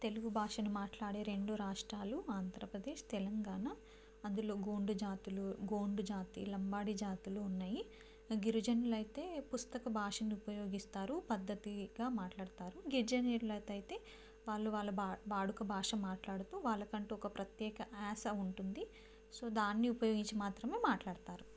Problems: low volume